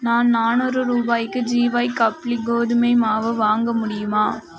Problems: continuous background conversations